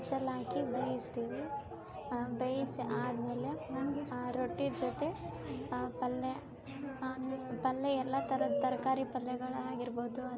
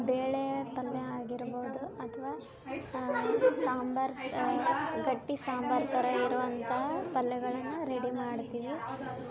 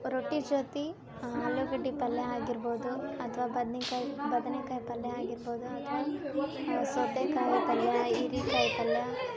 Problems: background sounds at intervals